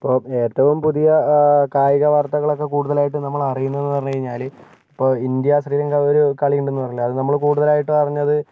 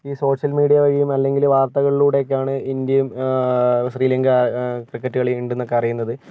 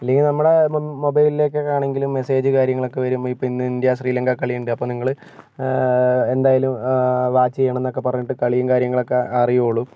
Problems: none marked